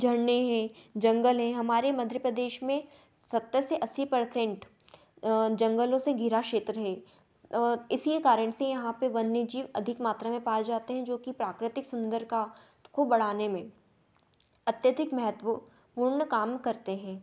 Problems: none marked